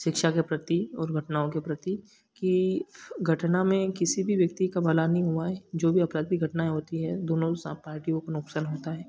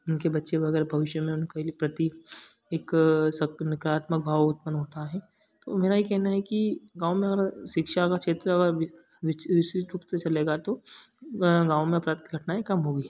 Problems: background sounds at intervals